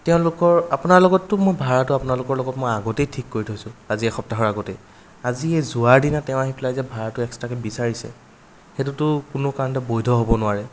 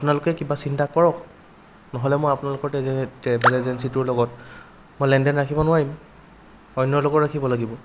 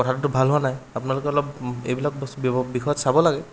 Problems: background sounds at intervals